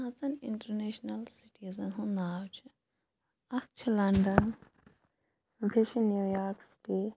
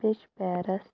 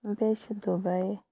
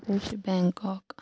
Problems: none marked